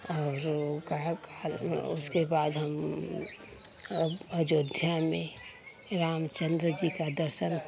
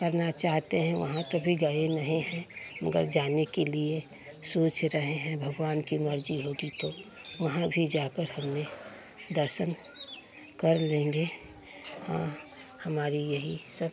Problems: none marked